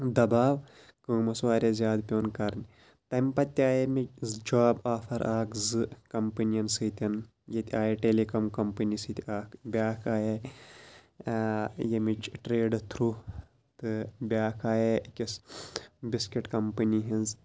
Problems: background sounds at intervals